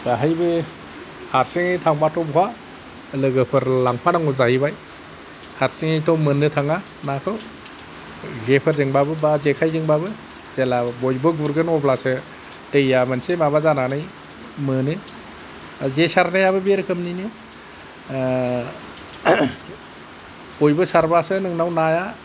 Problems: none marked